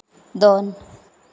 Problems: none marked